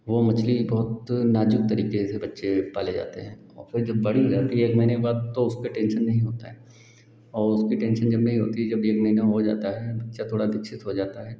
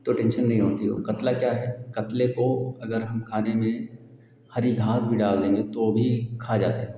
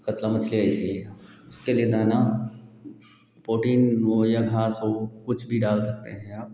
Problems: constant background noise